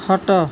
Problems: constant background noise